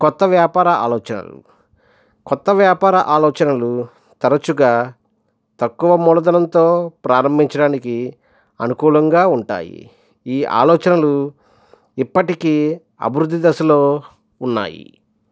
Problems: none marked